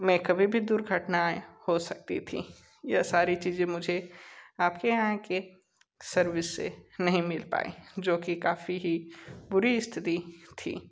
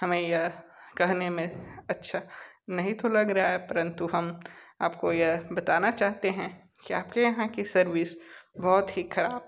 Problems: background sounds at intervals